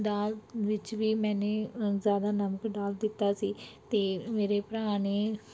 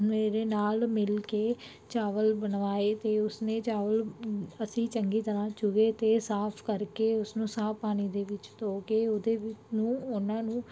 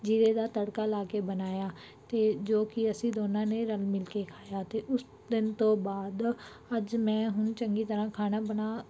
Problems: background sounds at intervals